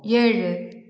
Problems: background conversations at intervals